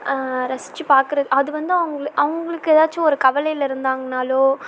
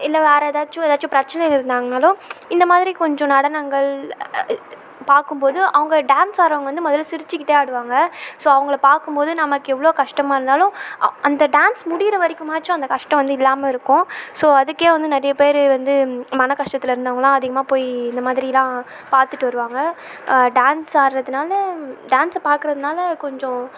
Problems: constant background noise